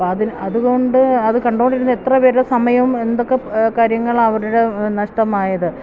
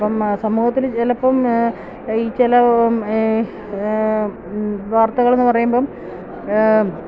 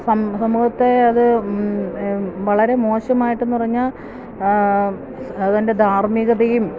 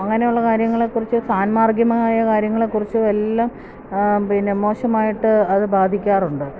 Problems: none marked